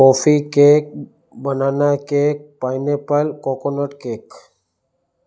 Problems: background sounds at intervals, echo